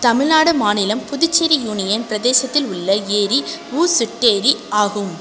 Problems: constant background noise